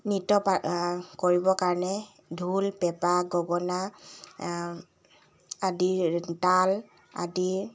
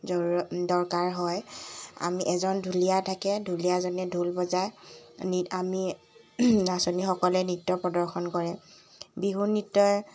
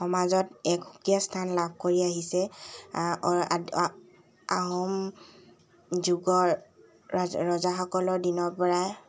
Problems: constant background noise, background conversations at intervals